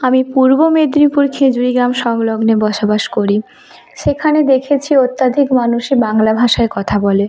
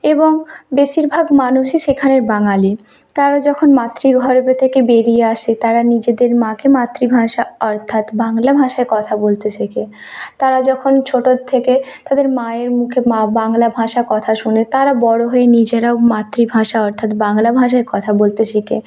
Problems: constant background noise, continuous background conversations